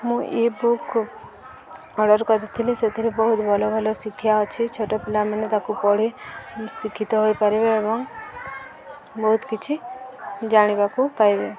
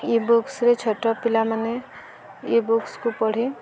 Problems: constant background noise, continuous background conversations